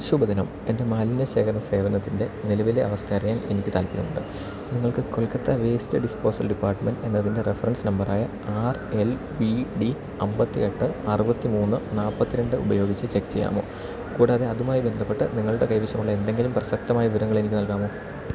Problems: none marked